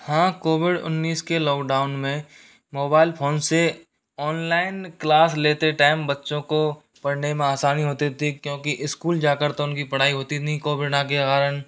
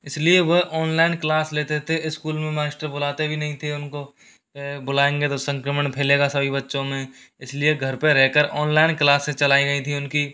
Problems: none marked